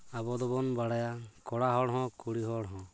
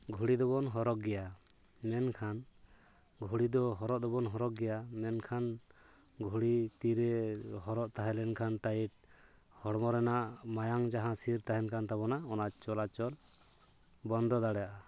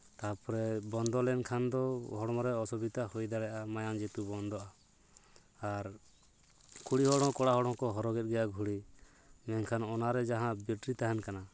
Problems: background conversations at intervals